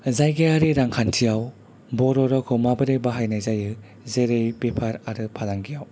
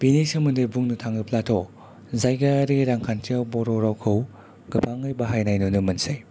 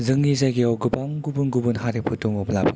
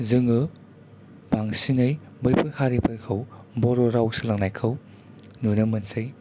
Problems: low volume